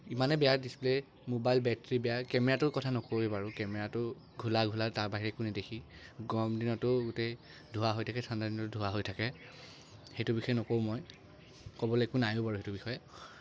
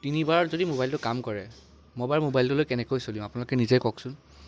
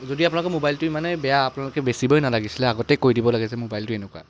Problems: none marked